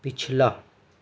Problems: constant background noise, low volume